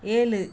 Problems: none marked